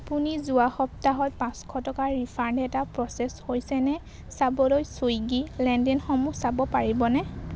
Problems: constant background noise, background conversations at intervals